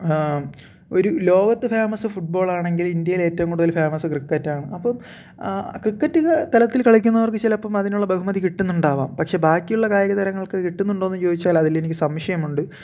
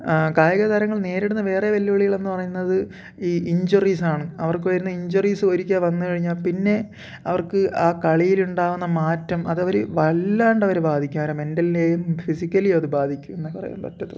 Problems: none marked